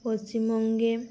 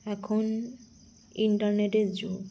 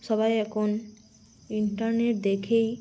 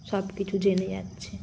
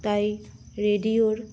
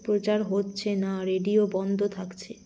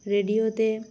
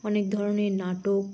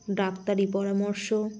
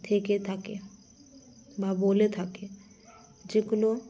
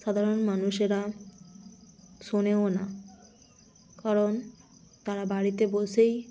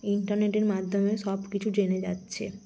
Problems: none marked